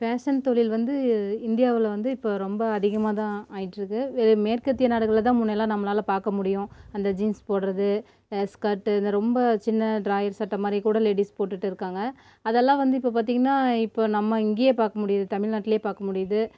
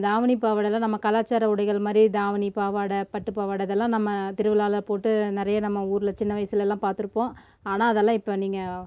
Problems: constant background noise